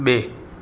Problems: constant background noise